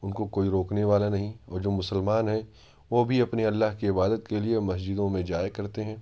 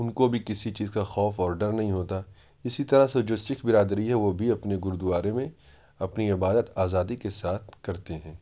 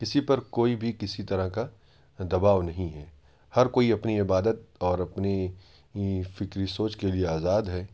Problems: background sounds at intervals